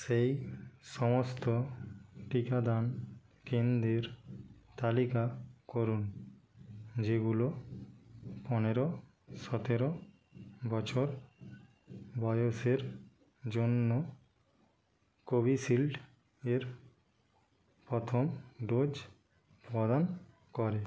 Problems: background conversations at intervals